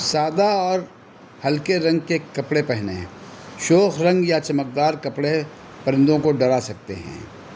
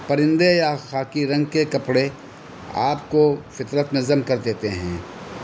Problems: constant background noise